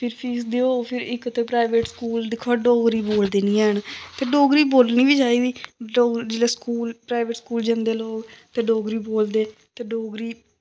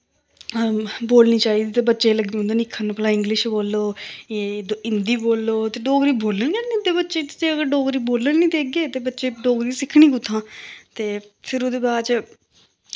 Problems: none marked